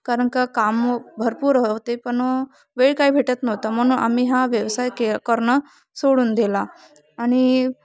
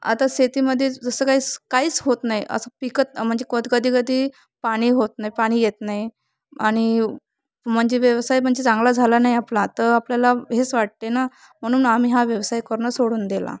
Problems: constant background noise, background conversations at intervals